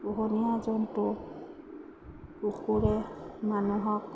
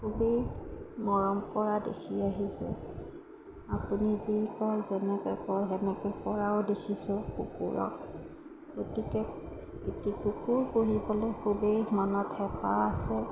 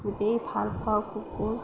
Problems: none marked